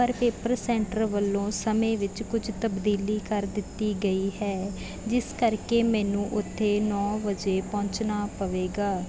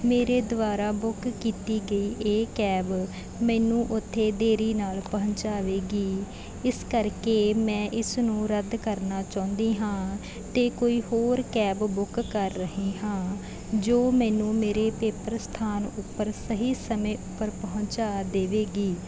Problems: background sounds at intervals